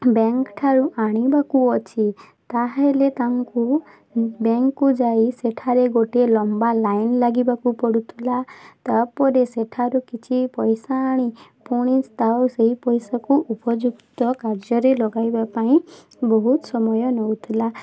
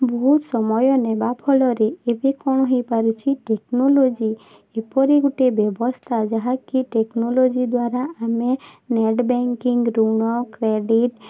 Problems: none marked